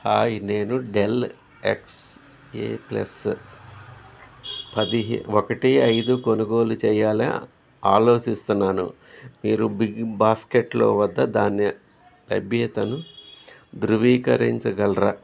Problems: none marked